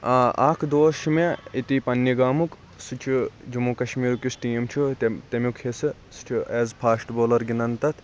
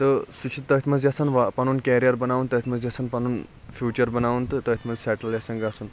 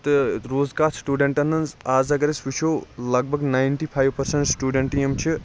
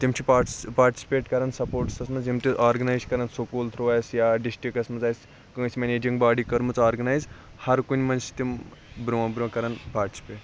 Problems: constant background noise